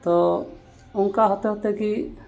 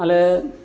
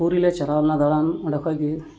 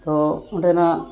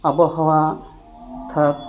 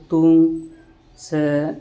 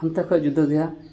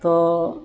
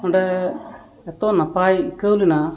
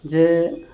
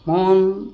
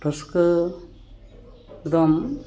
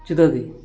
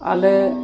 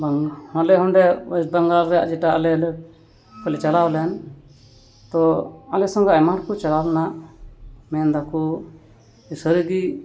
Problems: none marked